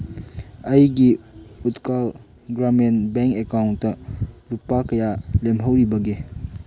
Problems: background sounds at intervals